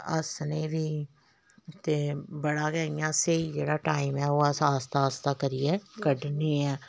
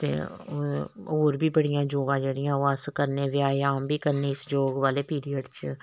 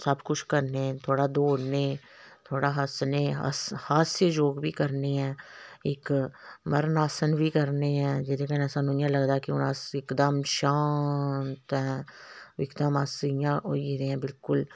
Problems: none marked